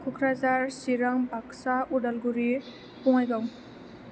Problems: constant background noise